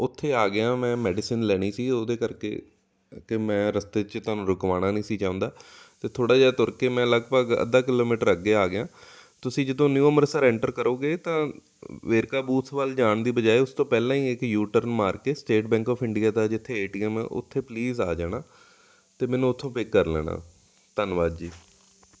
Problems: none marked